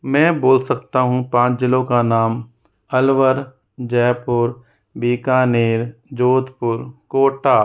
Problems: none marked